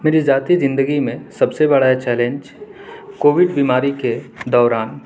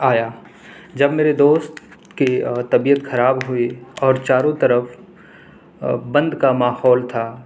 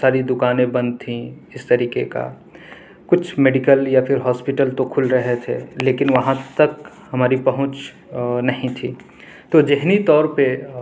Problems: background sounds at intervals